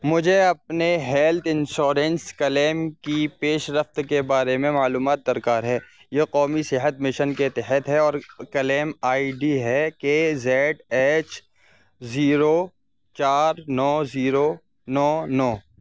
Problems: constant background noise